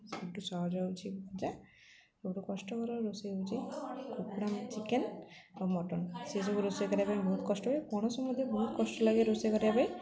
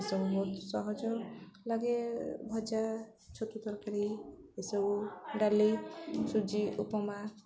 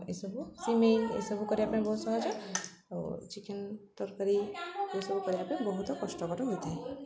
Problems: constant background noise, continuous background conversations